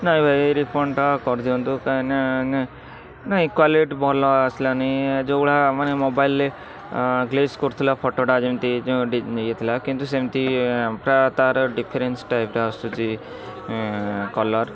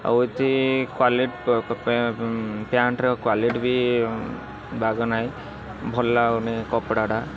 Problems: constant background noise